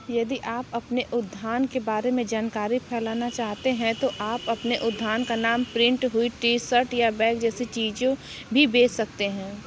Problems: continuous background conversations